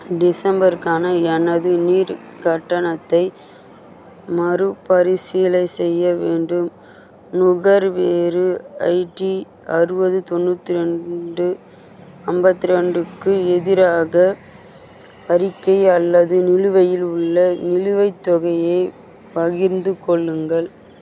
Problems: constant background noise